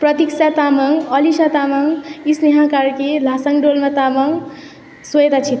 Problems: none marked